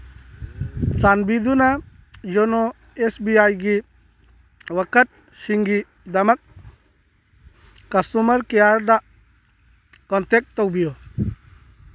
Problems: background sounds at intervals